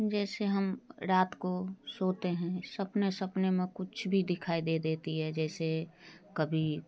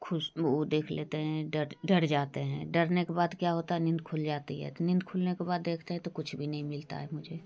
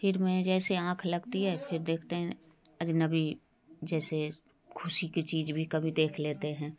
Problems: background sounds at intervals